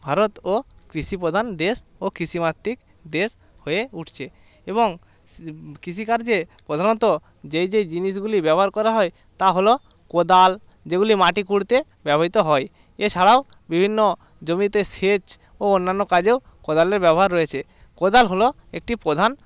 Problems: continuous background conversations